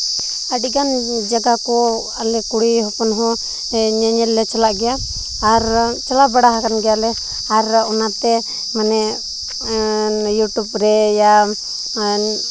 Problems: constant background noise